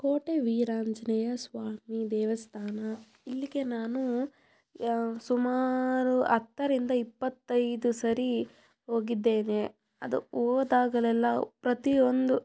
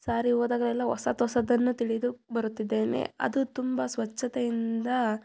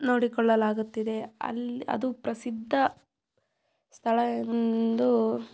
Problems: background sounds at intervals